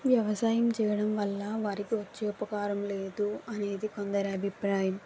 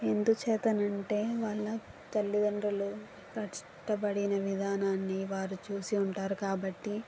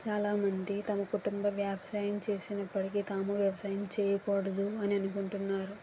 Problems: constant background noise